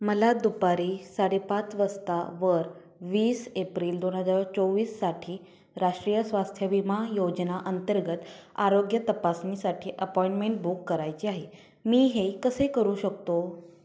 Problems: none marked